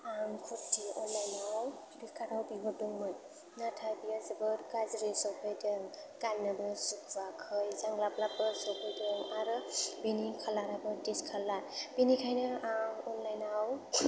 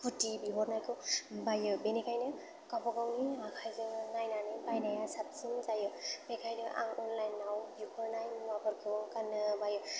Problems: low volume